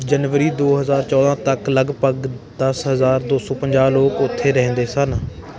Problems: continuous background conversations